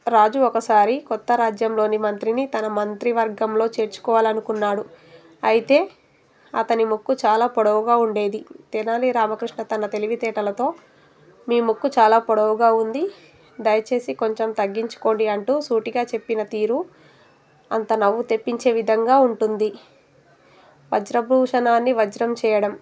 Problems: background sounds at intervals